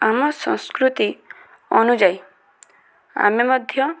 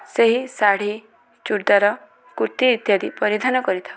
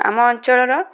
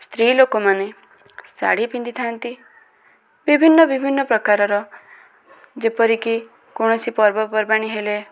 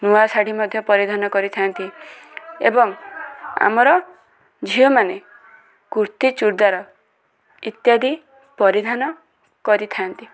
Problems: constant background noise, continuous background conversations